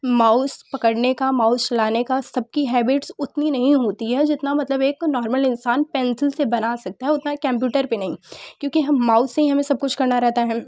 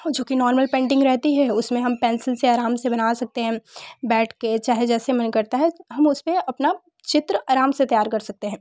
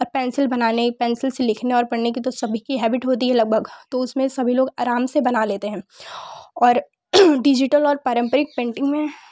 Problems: background sounds at intervals